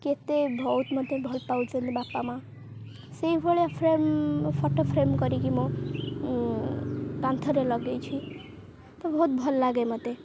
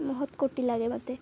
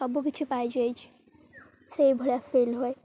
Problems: constant background noise